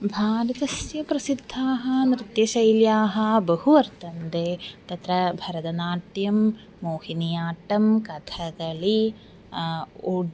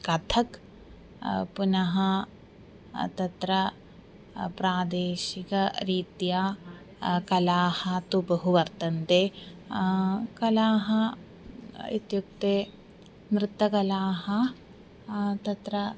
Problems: constant background noise